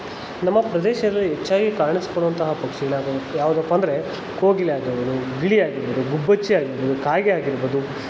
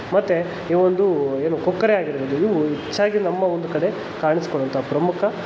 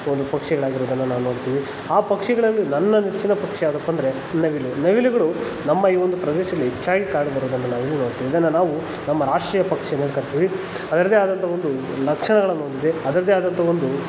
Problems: constant background noise